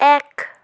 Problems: none marked